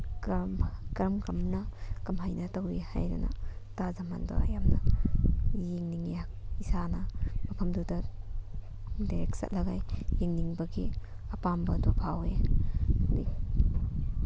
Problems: constant background noise